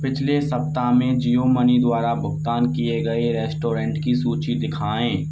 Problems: none marked